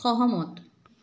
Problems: background conversations at intervals